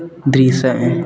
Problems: constant background noise